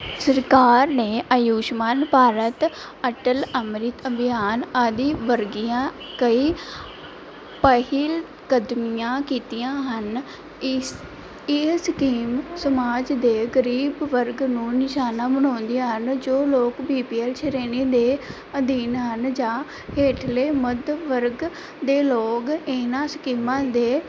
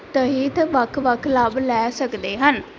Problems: none marked